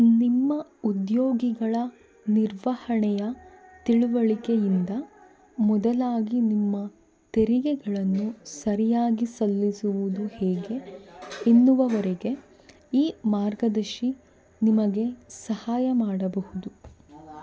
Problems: background sounds at intervals, background conversations at intervals